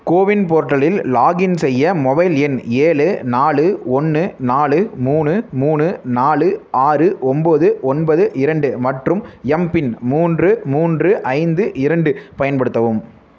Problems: none marked